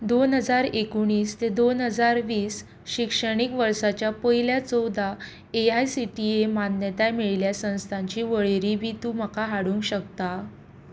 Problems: background sounds at intervals